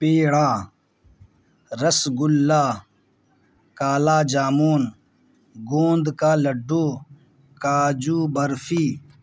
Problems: none marked